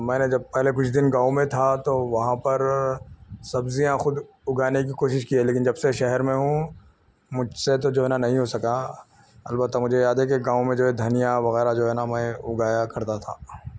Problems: none marked